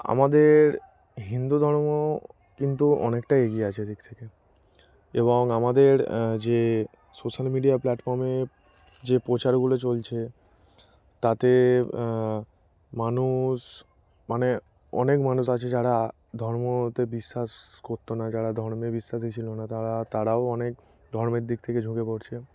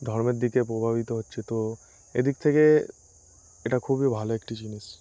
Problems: constant background noise